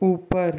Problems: constant background noise